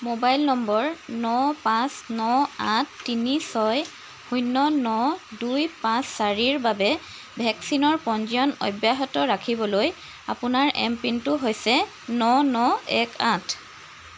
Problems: constant background noise